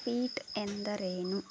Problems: low volume